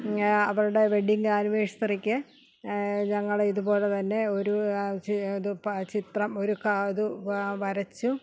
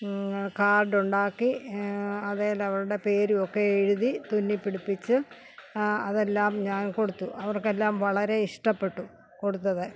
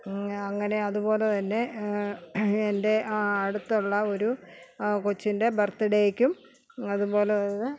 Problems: background sounds at intervals